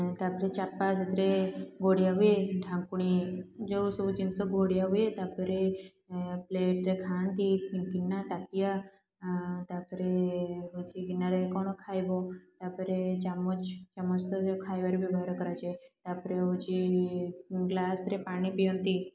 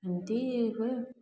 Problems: background sounds at intervals, continuous background conversations